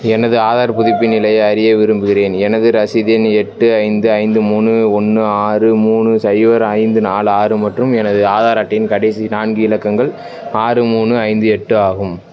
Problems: constant background noise